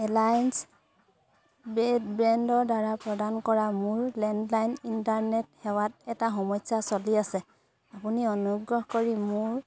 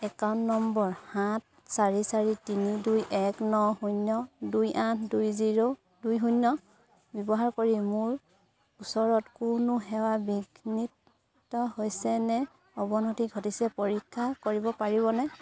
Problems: constant background noise, continuous background conversations